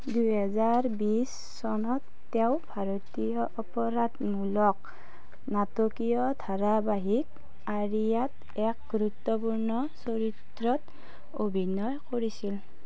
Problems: none marked